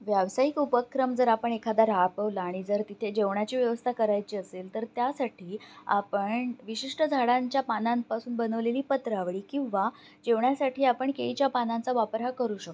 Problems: none marked